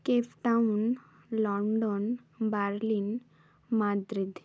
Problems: none marked